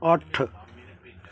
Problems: continuous background conversations